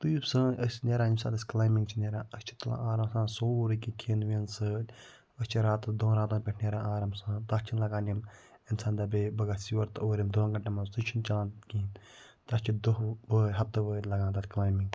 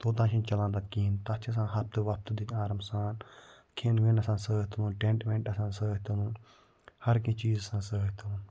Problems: none marked